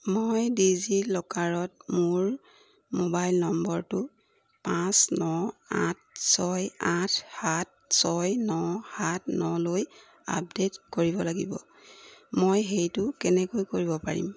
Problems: none marked